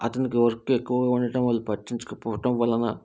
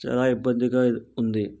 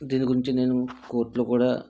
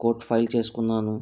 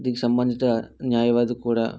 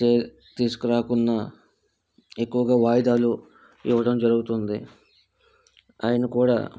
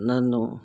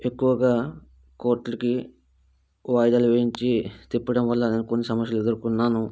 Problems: background sounds at intervals